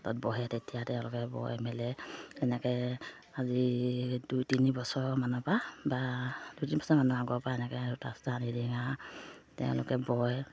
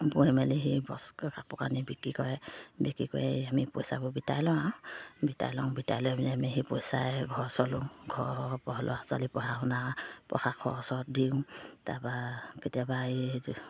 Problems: low volume